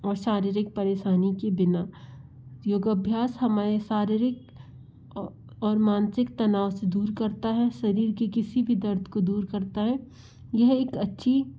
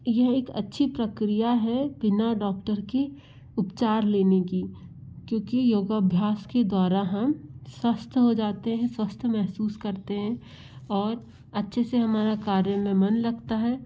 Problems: background sounds at intervals